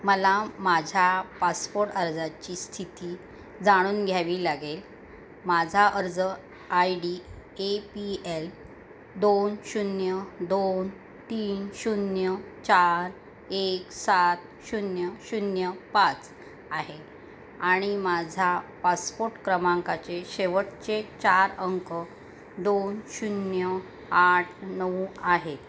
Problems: none marked